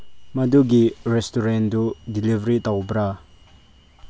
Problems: low volume